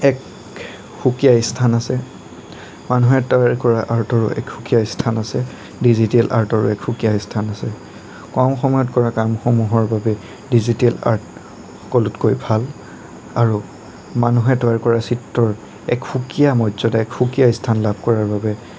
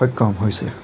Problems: constant background noise